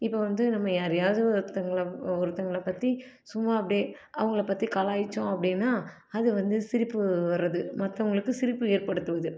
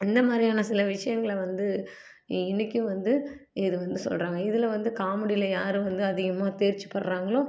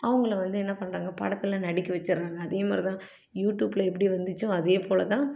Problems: low volume